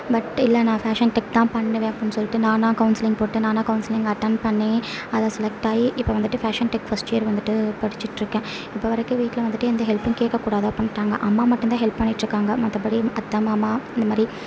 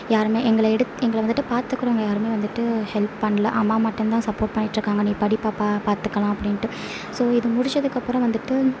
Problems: low volume